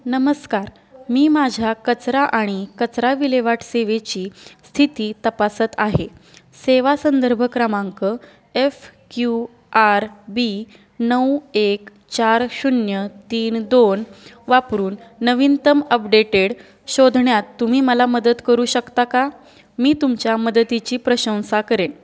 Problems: none marked